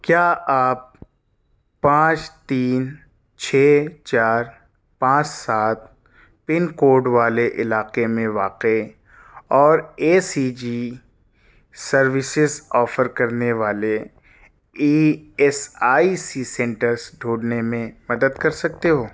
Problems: none marked